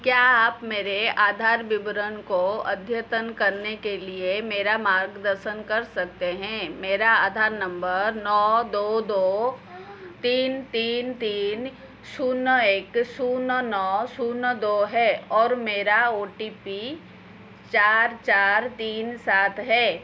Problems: constant background noise